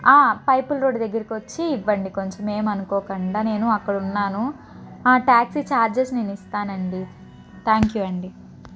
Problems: none marked